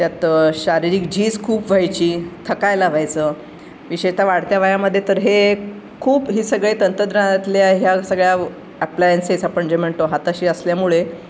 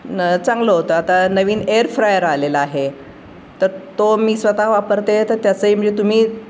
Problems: none marked